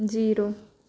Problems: background sounds at intervals